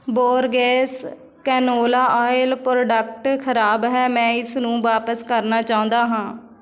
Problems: background conversations at intervals